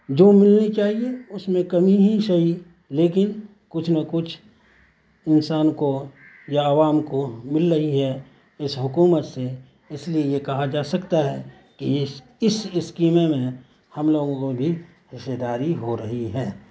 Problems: constant background noise